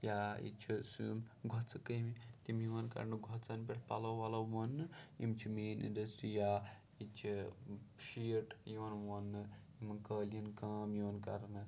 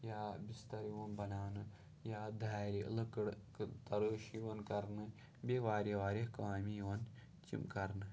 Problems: low volume